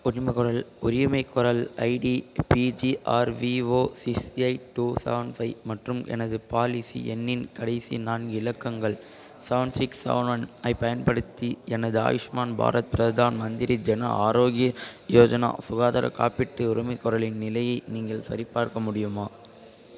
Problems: constant background noise, continuous background conversations